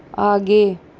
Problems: none marked